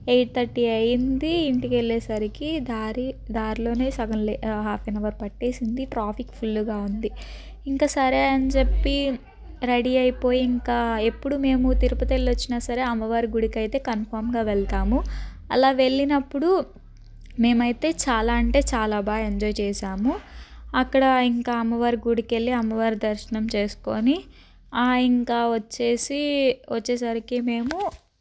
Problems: none marked